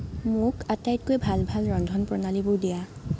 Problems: none marked